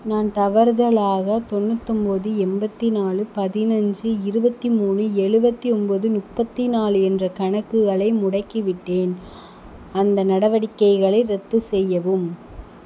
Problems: constant background noise